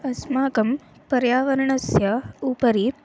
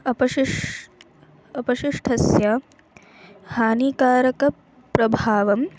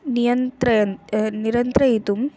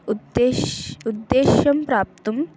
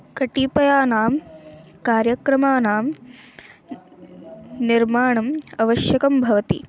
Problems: constant background noise